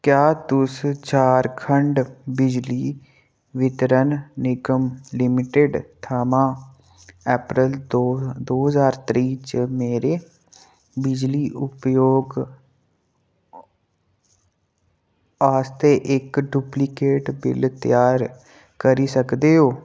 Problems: none marked